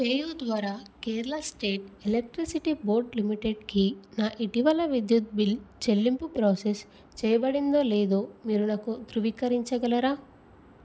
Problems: none marked